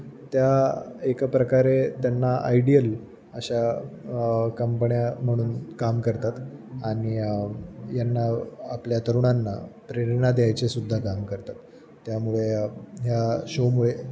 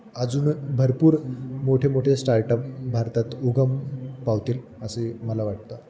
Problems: constant background noise, background conversations at intervals